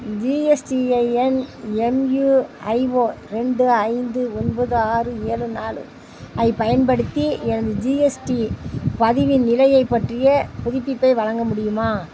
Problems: constant background noise